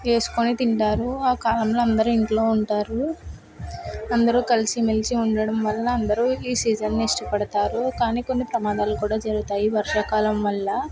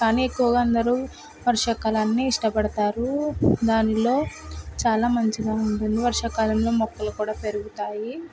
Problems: constant background noise, background conversations at intervals